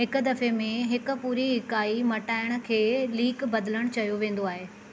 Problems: none marked